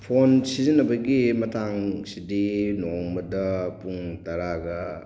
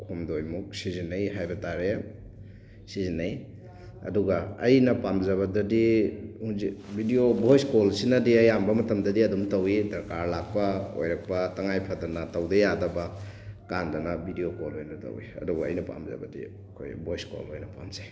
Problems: constant background noise